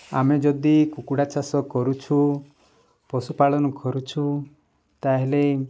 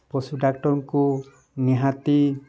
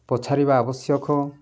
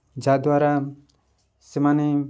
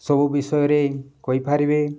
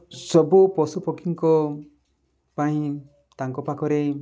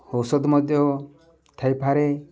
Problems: background sounds at intervals, background conversations at intervals